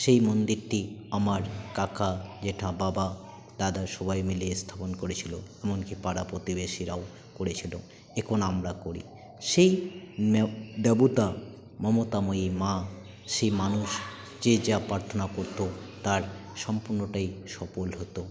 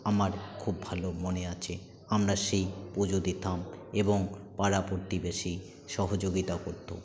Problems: constant background noise, continuous background conversations